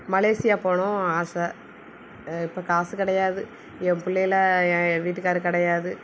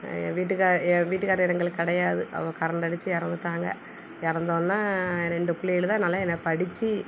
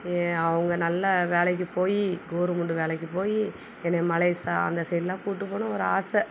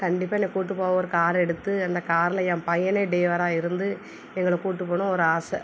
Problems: none marked